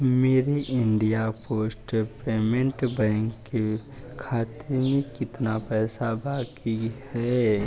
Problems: constant background noise, low volume